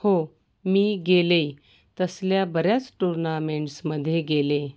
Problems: background sounds at intervals, background conversations at intervals